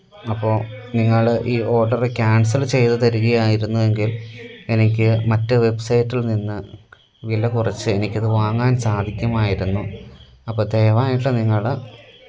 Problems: none marked